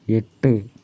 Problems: none marked